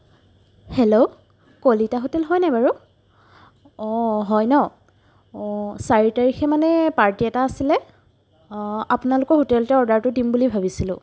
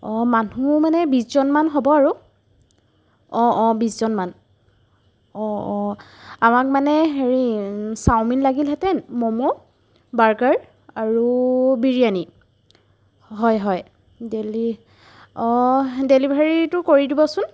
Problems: background sounds at intervals